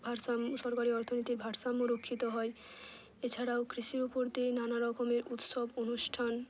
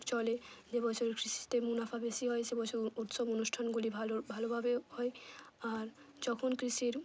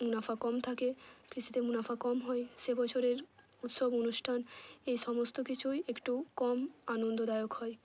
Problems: none marked